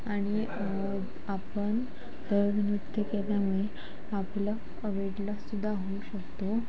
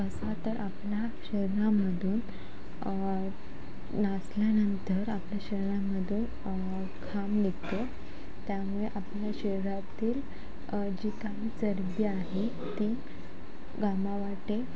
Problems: constant background noise, background conversations at intervals